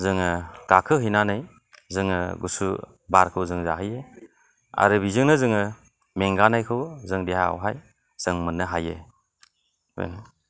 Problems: low volume